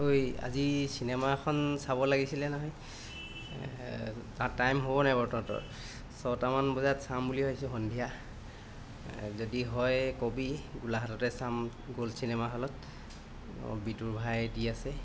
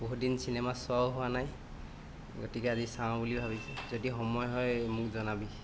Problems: constant background noise